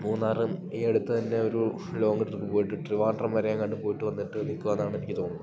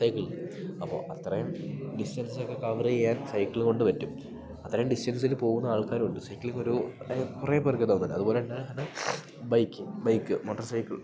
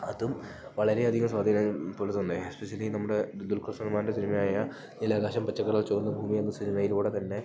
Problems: none marked